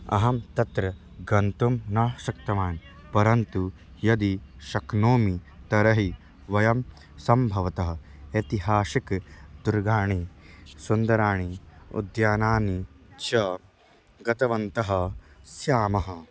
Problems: none marked